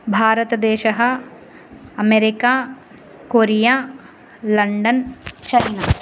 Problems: none marked